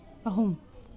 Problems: background sounds at intervals